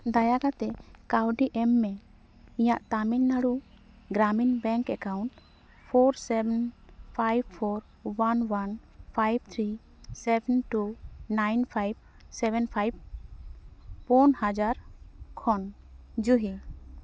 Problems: none marked